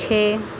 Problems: none marked